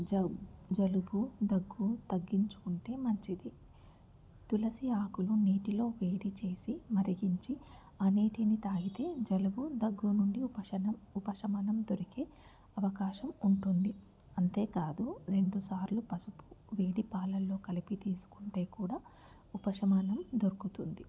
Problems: constant background noise, low volume